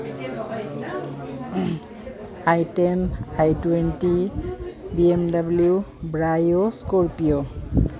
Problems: none marked